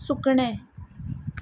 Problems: none marked